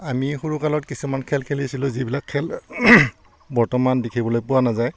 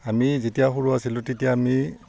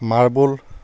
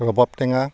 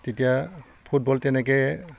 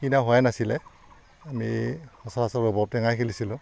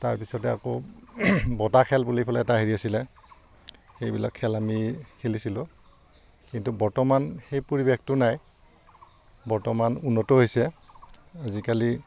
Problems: background sounds at intervals